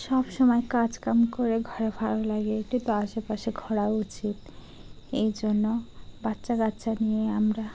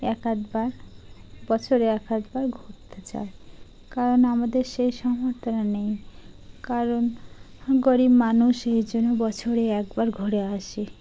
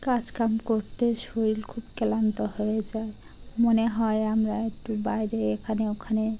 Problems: constant background noise